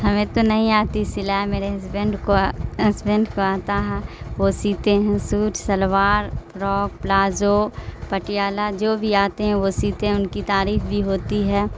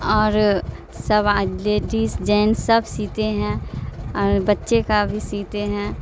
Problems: constant background noise